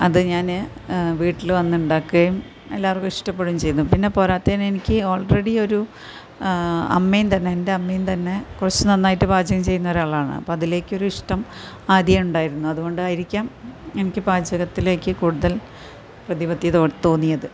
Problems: constant background noise